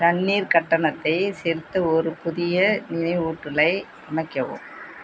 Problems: background sounds at intervals